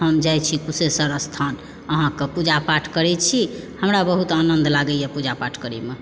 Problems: background sounds at intervals